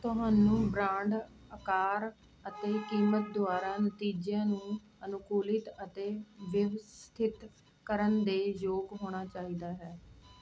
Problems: constant background noise